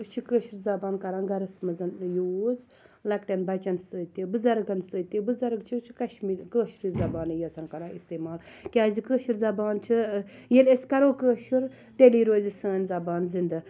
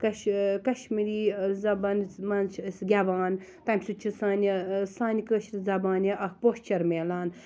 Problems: low volume